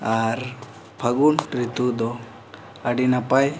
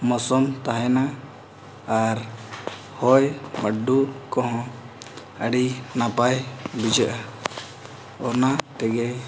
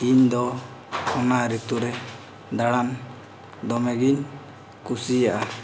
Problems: constant background noise